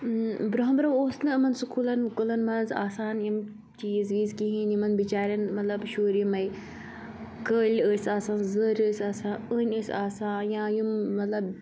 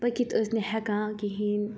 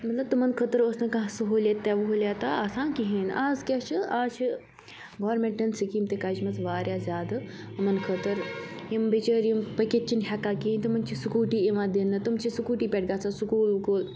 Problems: none marked